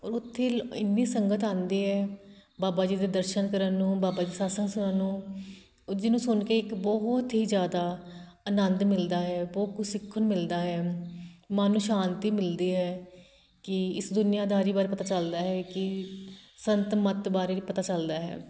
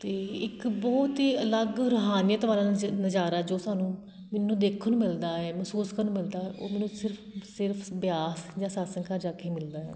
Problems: constant background noise